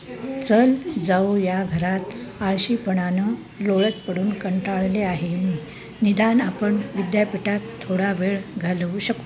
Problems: constant background noise, background conversations at intervals